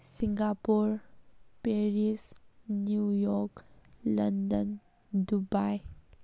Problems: none marked